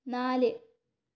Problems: none marked